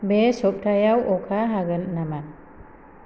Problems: none marked